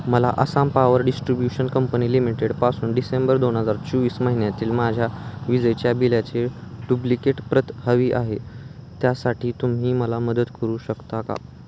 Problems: none marked